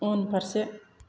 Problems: none marked